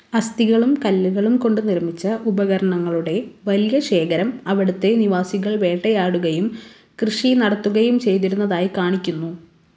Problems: background sounds at intervals